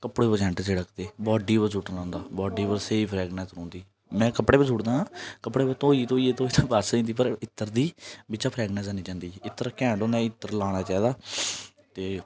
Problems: none marked